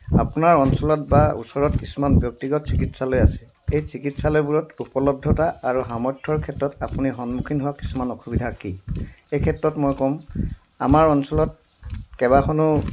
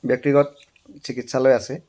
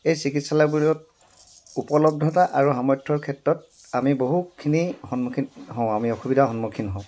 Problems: background sounds at intervals